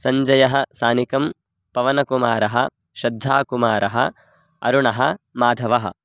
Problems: none marked